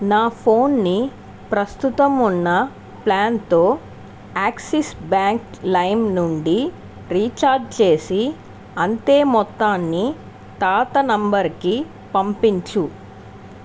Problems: constant background noise